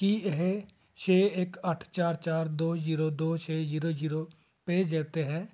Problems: none marked